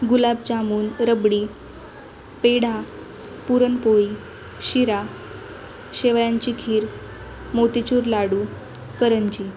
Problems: none marked